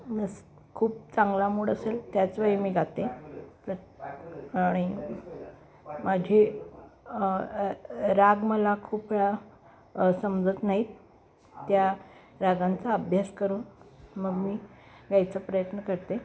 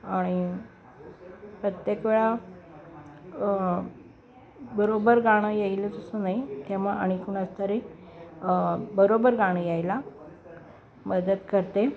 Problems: constant background noise, continuous background conversations